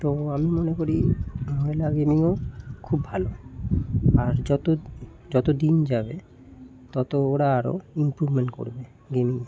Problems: none marked